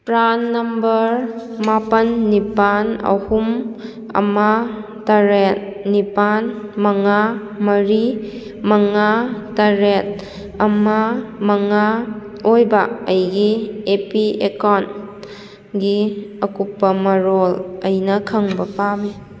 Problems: background sounds at intervals